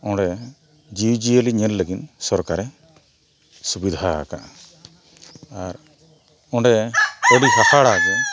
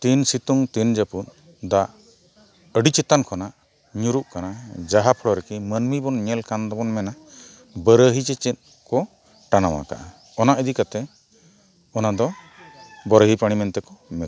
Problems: background sounds at intervals